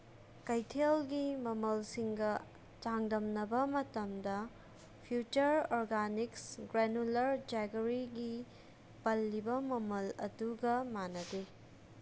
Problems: none marked